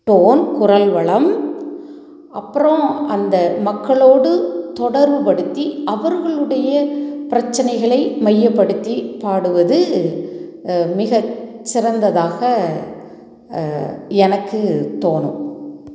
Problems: none marked